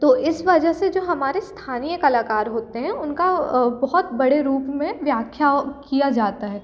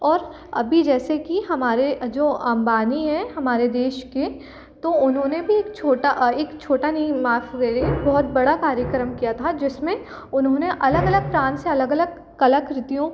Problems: constant background noise